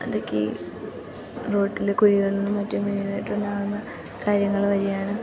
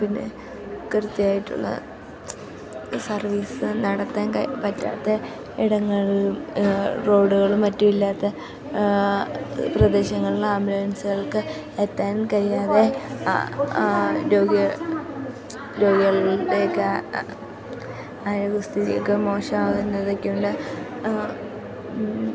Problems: constant background noise, low volume